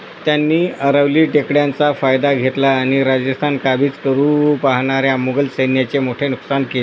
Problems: constant background noise